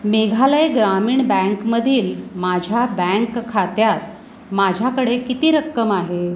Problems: constant background noise